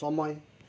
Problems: none marked